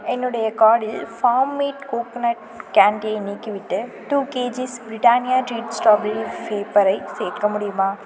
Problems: background conversations at intervals